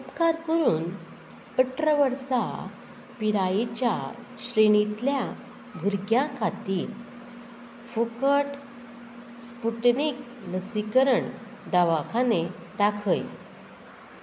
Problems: none marked